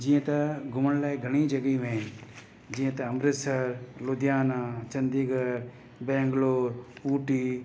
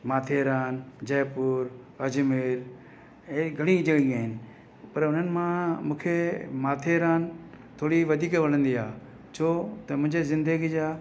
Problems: constant background noise